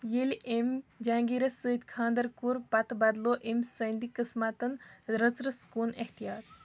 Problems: background sounds at intervals